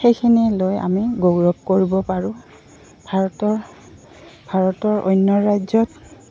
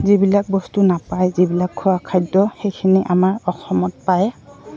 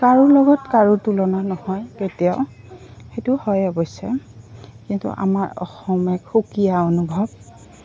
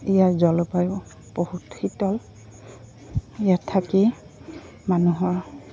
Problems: constant background noise, continuous background conversations